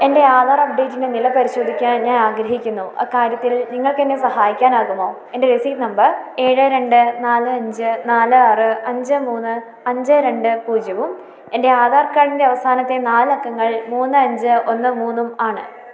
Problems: none marked